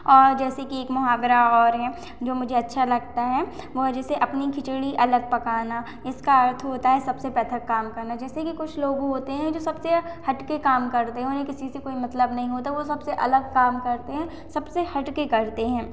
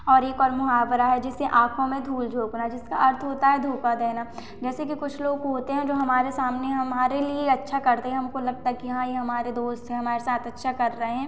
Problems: constant background noise, echo